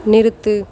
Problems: constant background noise